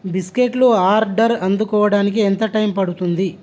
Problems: constant background noise